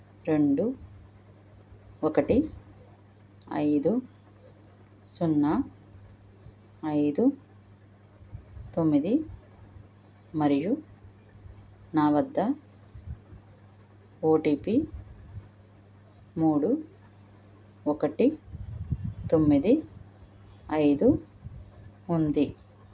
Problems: none marked